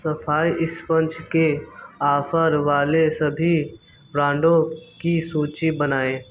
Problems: background sounds at intervals